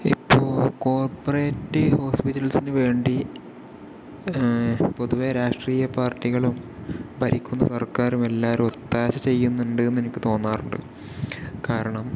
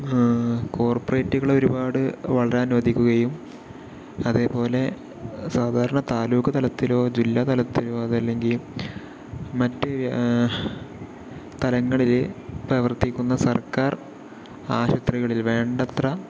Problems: constant background noise, low volume